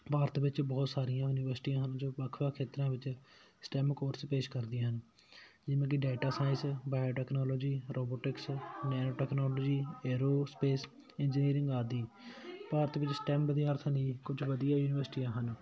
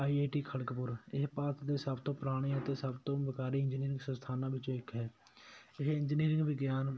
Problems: none marked